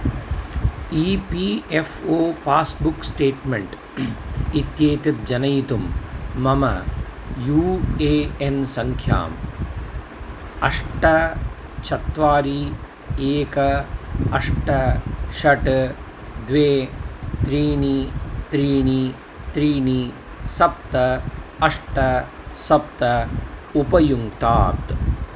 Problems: none marked